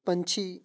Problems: background sounds at intervals